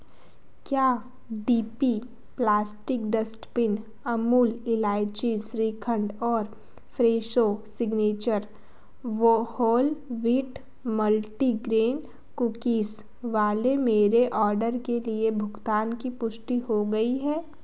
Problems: background sounds at intervals